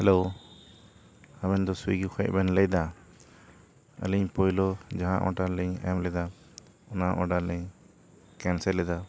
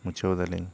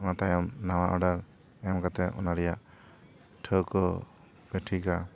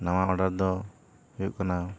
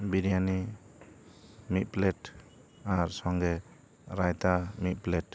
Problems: none marked